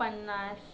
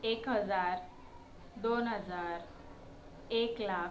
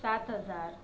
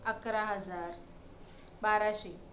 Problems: background sounds at intervals, continuous background conversations